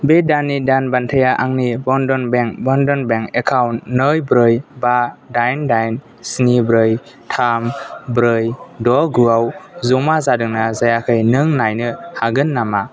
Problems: none marked